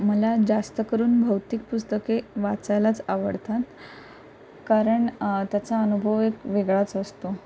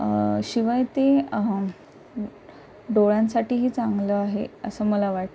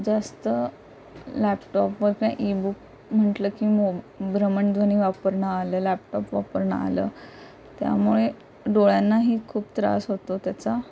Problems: constant background noise